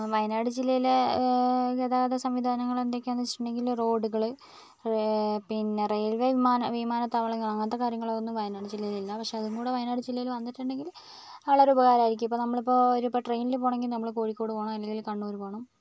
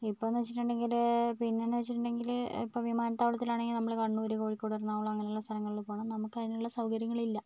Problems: low volume